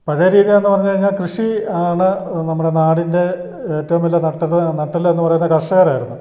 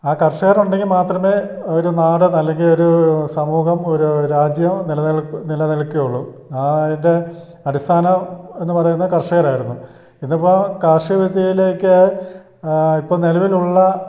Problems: background sounds at intervals